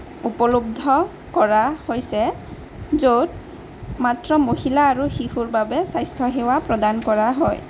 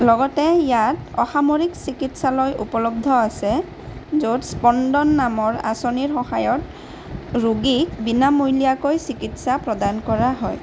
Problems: constant background noise